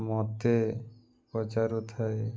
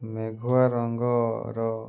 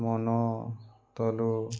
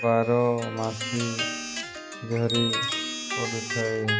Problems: background sounds at intervals